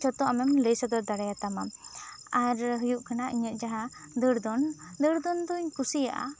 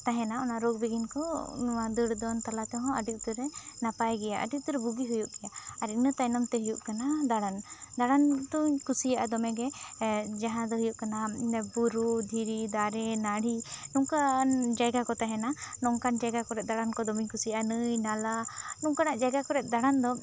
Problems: background conversations at intervals